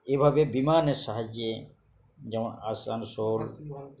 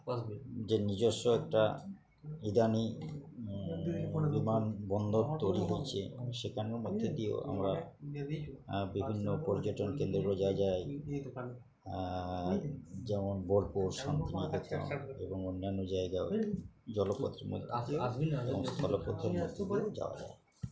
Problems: continuous background conversations